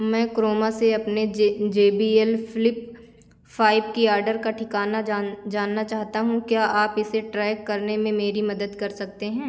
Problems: constant background noise